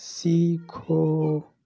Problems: background sounds at intervals, background conversations at intervals